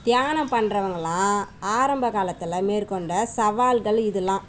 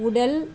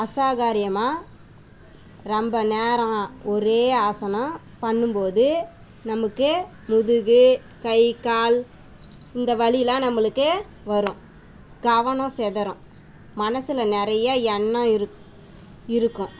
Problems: constant background noise